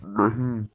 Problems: constant background noise